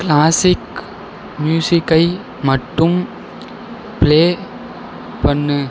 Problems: background sounds at intervals